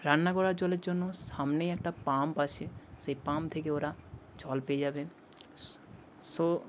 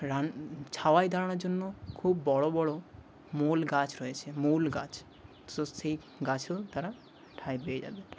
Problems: background sounds at intervals